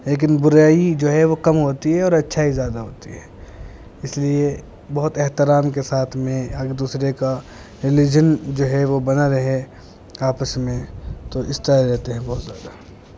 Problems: constant background noise